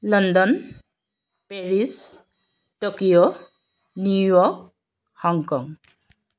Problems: background sounds at intervals